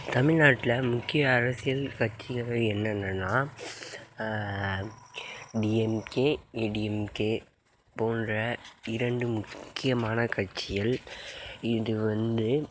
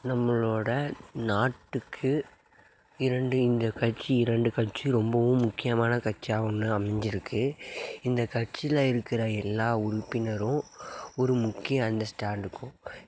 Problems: background sounds at intervals